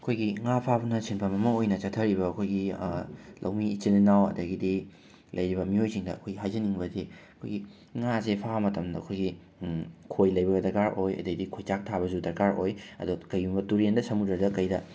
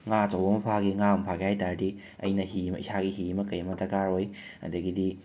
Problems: background sounds at intervals, background conversations at intervals